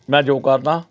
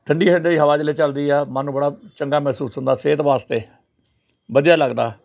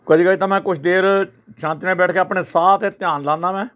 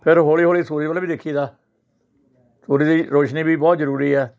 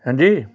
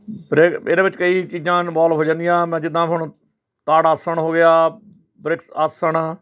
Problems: background sounds at intervals, background conversations at intervals